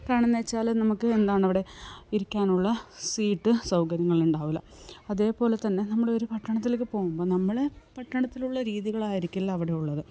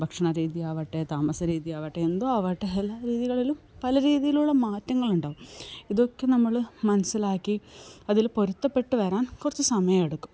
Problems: background sounds at intervals, low volume